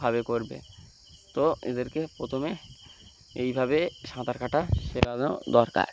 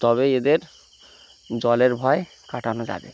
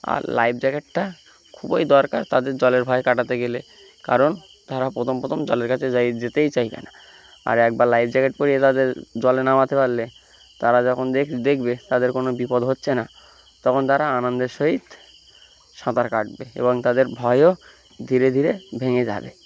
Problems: background sounds at intervals